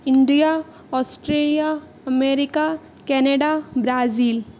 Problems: none marked